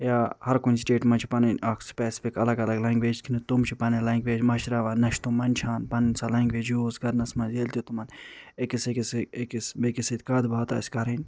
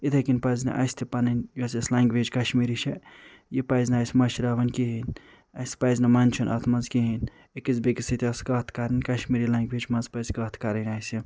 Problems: none marked